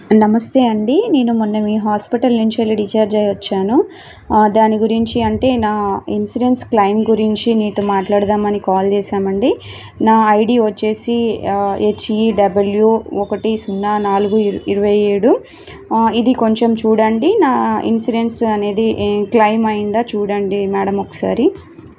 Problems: none marked